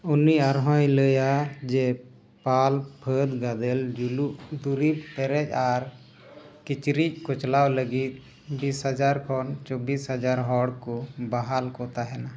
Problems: constant background noise